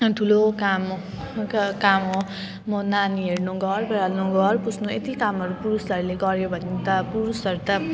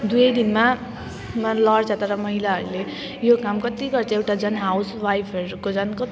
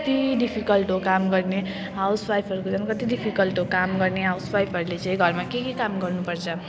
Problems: none marked